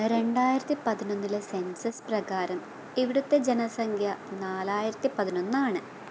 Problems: constant background noise, low volume